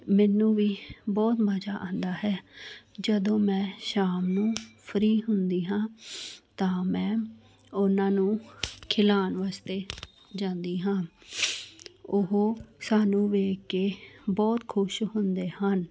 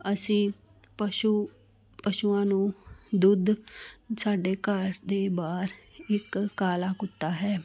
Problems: none marked